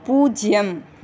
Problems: none marked